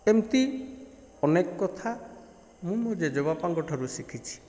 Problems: background sounds at intervals